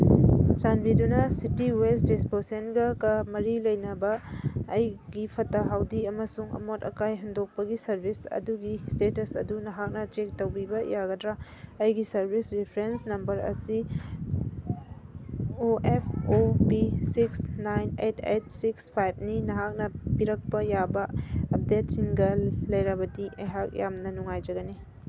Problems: background sounds at intervals